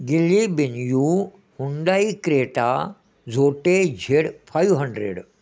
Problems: none marked